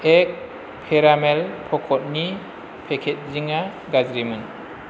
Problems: constant background noise